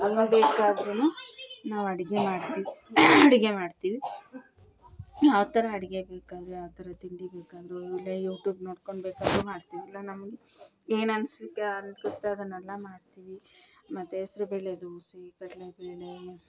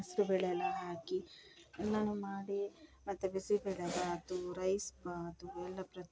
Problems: background sounds at intervals